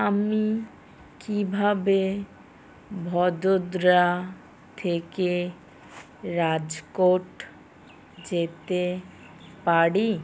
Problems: background sounds at intervals